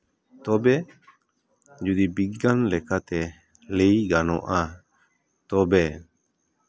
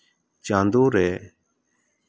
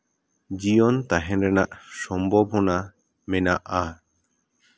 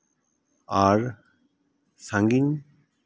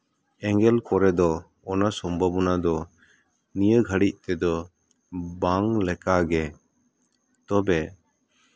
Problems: none marked